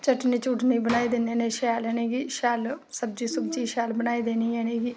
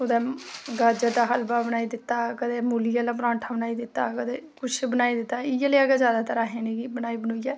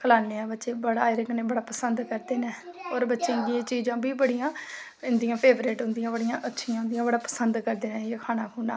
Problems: background sounds at intervals